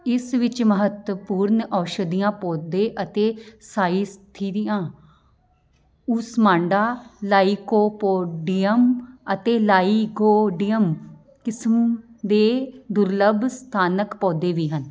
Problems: background sounds at intervals